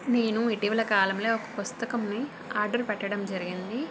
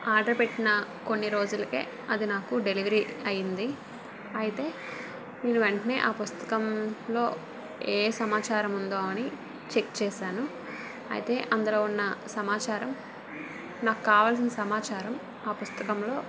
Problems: constant background noise